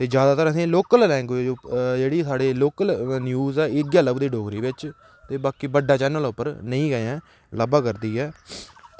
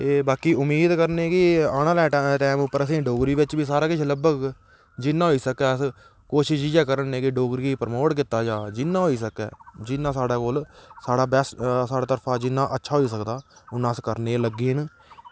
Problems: constant background noise